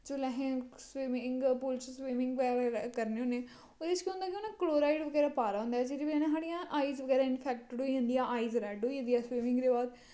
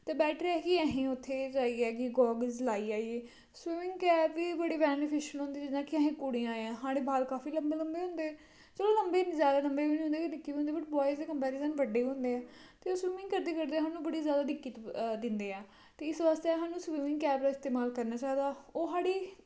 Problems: constant background noise